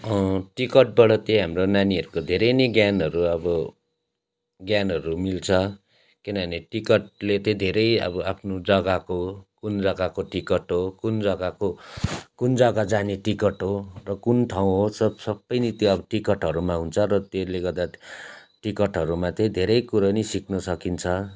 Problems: constant background noise